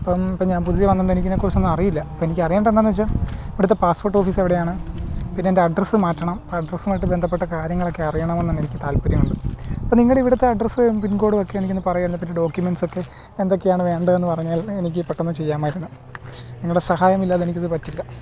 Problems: constant background noise